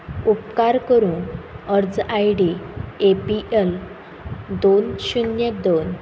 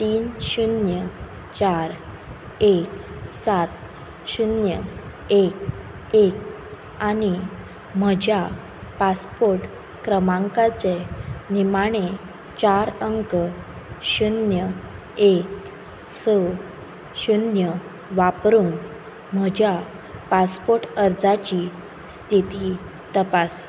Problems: background sounds at intervals